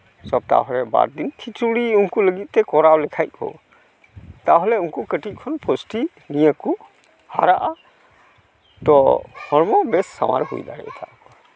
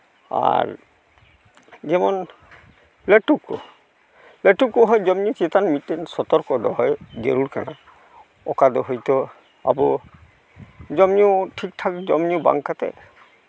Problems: none marked